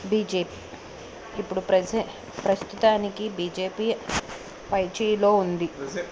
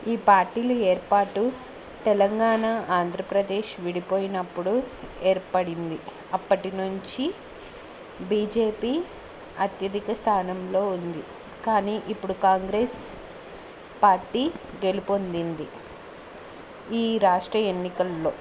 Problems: none marked